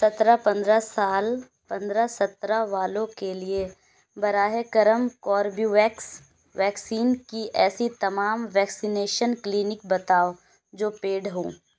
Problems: background sounds at intervals